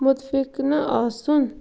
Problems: background sounds at intervals